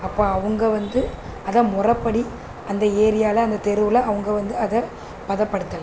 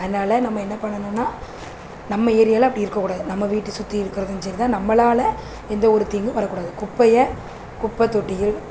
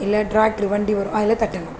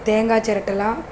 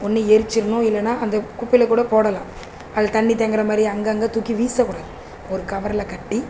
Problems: constant background noise